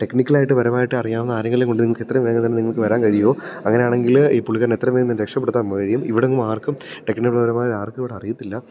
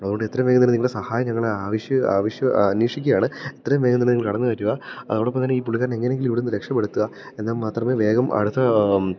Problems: background sounds at intervals